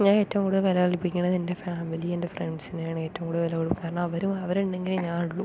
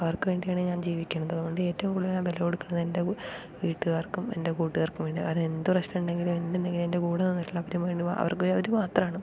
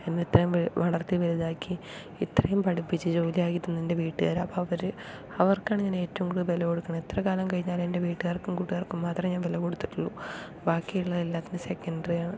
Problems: none marked